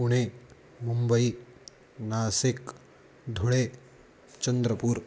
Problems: constant background noise